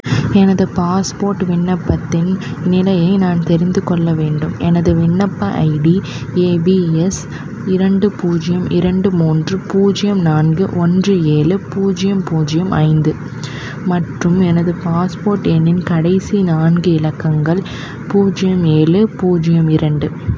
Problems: constant background noise